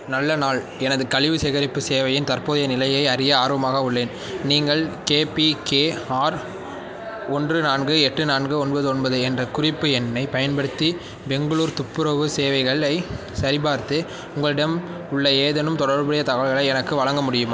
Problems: background sounds at intervals